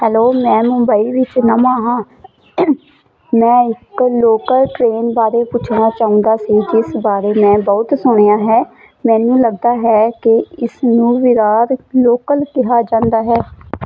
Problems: constant background noise